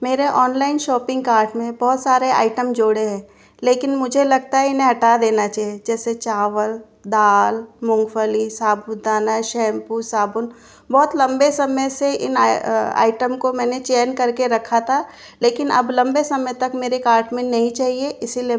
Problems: constant background noise